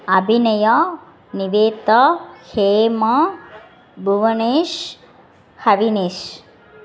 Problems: constant background noise, background conversations at intervals